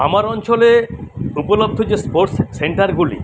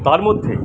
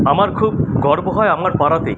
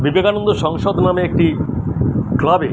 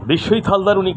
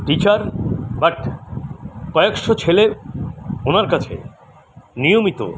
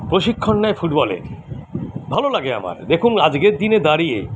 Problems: none marked